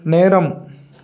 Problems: none marked